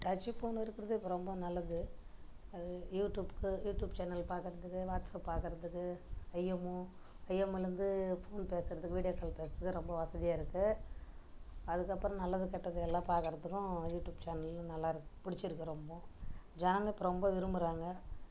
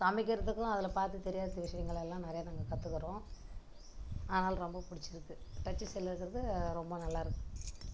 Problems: background sounds at intervals, low volume